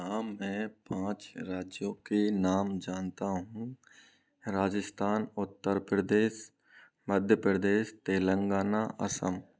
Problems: none marked